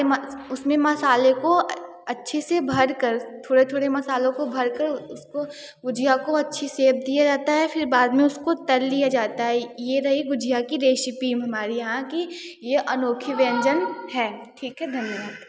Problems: background sounds at intervals, background conversations at intervals